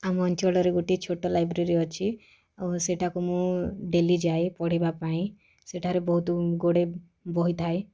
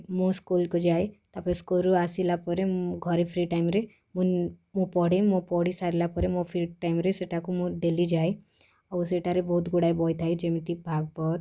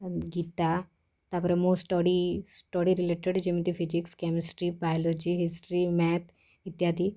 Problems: background conversations at intervals